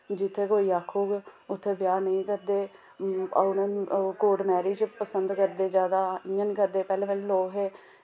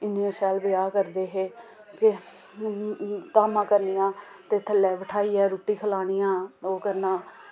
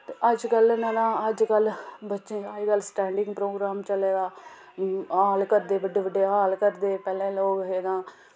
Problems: background sounds at intervals